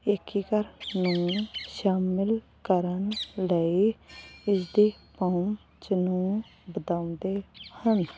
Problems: constant background noise